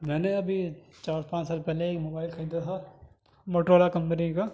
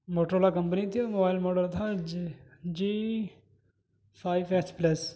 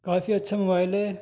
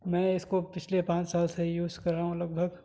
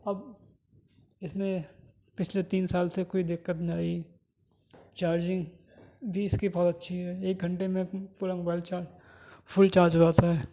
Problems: none marked